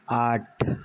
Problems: none marked